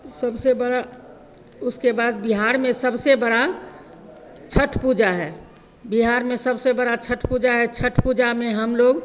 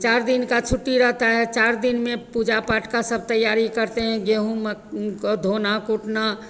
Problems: none marked